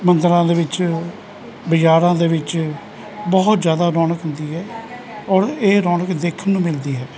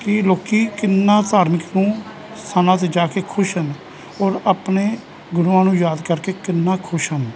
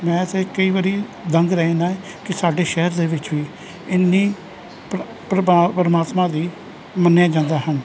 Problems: continuous background conversations